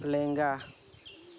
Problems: constant background noise